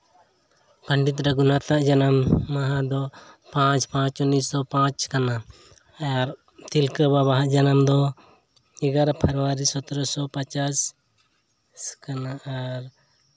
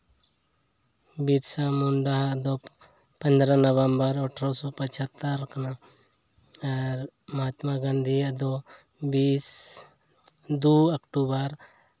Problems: background sounds at intervals